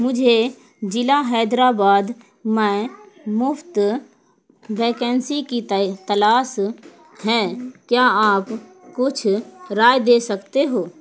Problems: background sounds at intervals